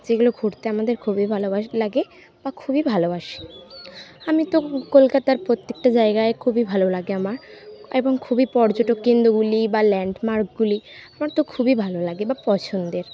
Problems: background sounds at intervals